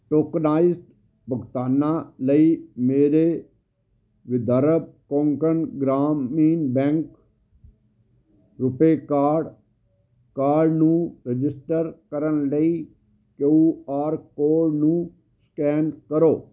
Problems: none marked